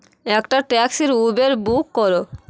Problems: constant background noise